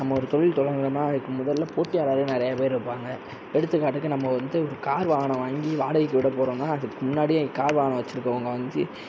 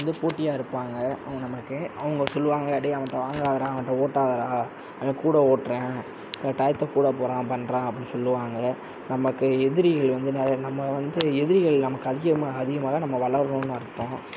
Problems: none marked